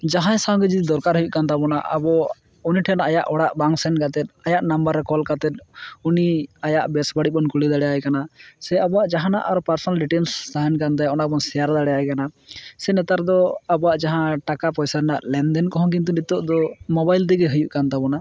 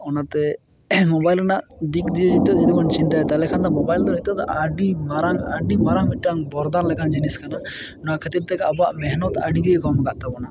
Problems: constant background noise